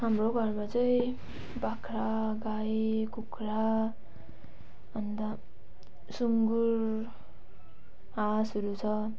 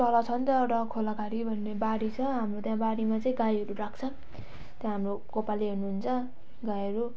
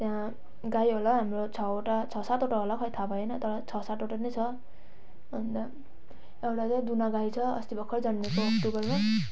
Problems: none marked